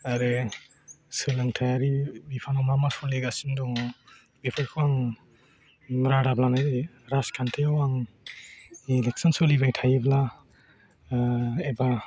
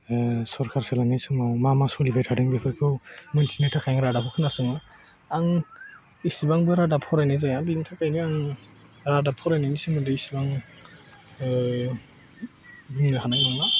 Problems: background conversations at intervals